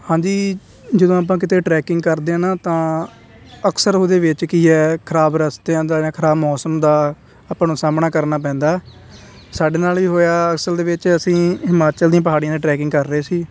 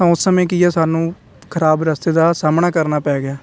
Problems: constant background noise